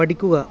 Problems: background sounds at intervals